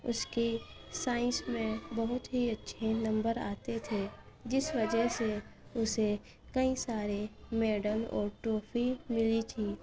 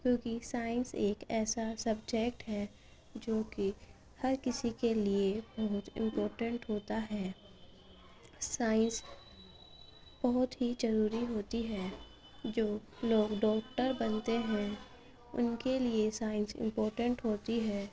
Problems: background sounds at intervals, background conversations at intervals, low volume